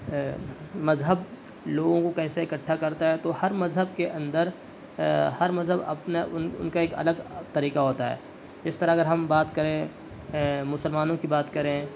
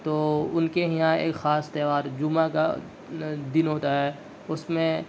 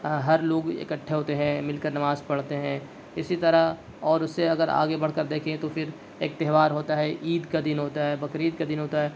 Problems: constant background noise